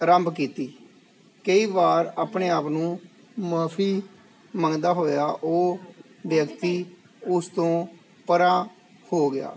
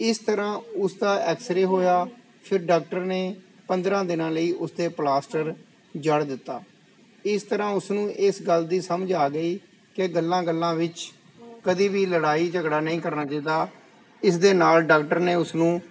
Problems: background conversations at intervals